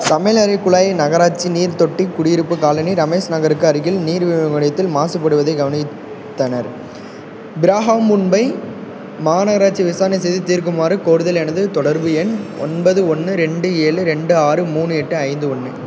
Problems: background sounds at intervals